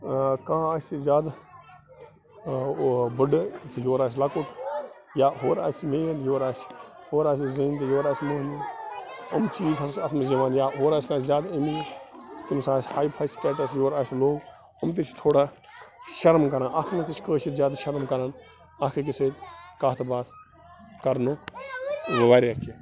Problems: constant background noise, continuous background conversations